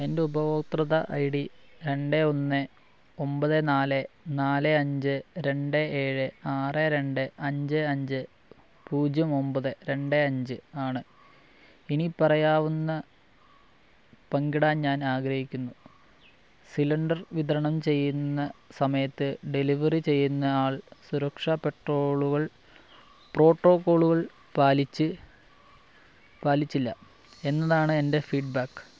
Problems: low volume